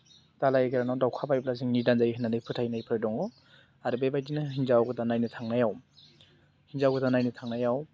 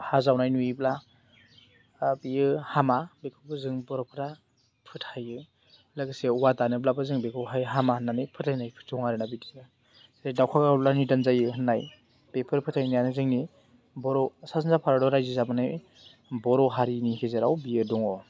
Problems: constant background noise